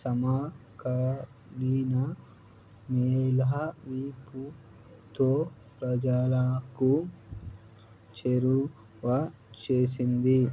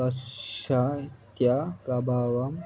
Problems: low volume